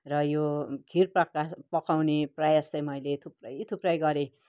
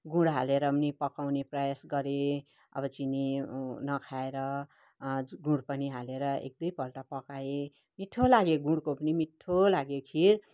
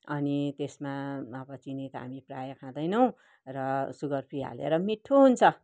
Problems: none marked